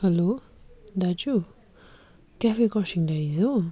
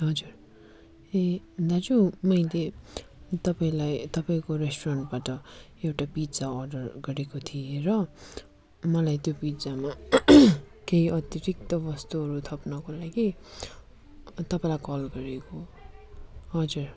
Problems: none marked